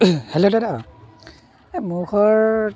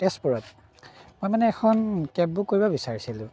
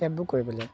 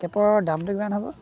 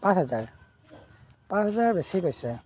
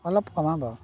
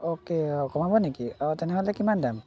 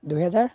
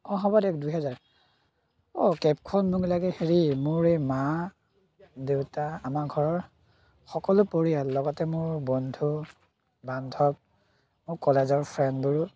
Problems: background sounds at intervals